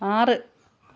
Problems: none marked